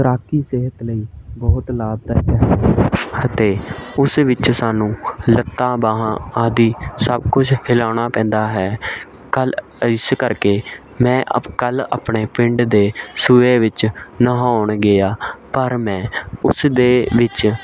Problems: continuous background conversations